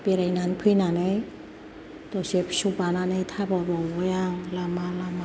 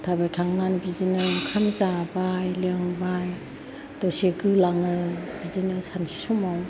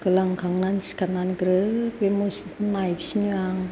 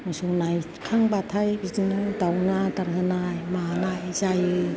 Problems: constant background noise, background conversations at intervals